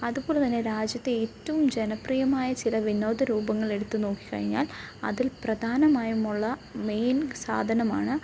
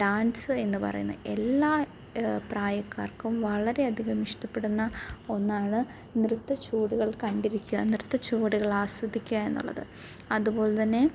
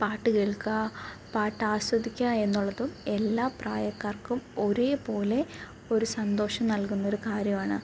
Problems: background sounds at intervals, low volume